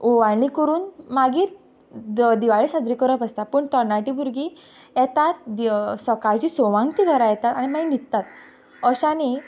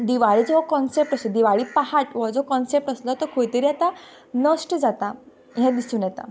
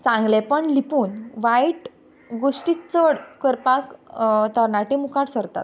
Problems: background sounds at intervals